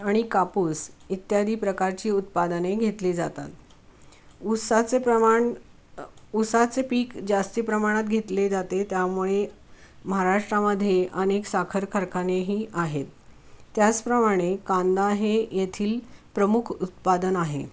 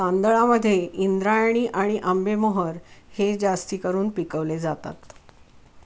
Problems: none marked